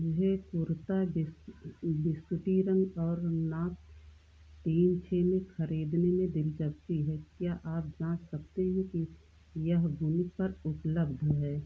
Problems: low volume